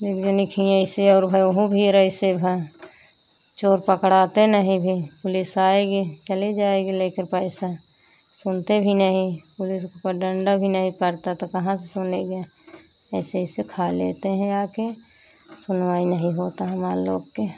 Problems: constant background noise